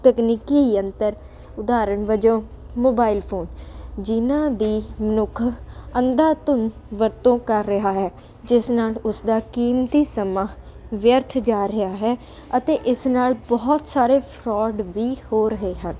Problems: constant background noise